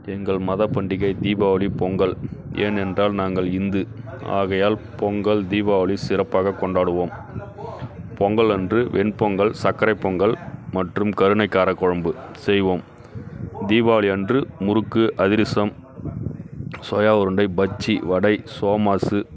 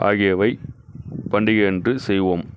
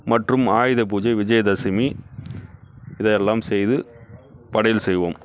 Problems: none marked